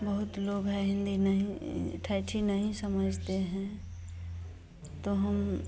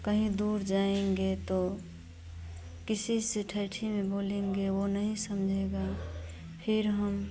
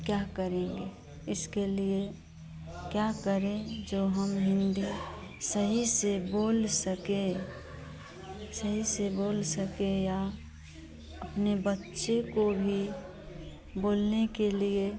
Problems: constant background noise